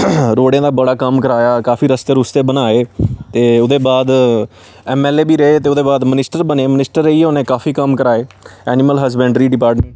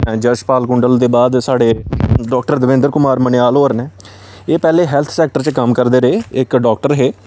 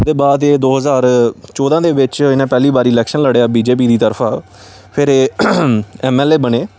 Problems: constant background noise